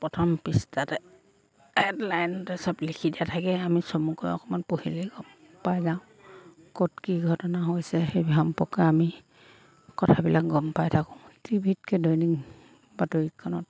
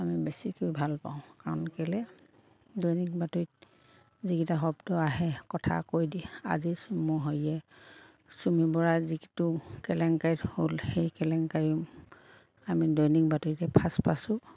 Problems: constant background noise, background conversations at intervals